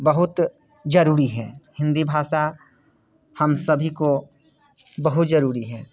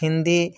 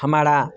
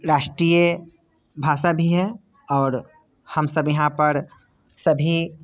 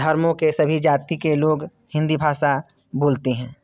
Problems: constant background noise